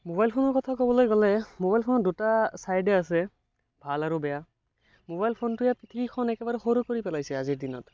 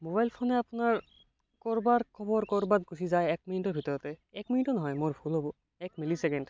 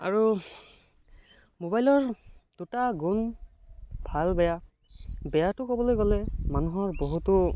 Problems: background sounds at intervals, background conversations at intervals